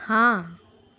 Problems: none marked